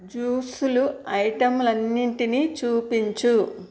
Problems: none marked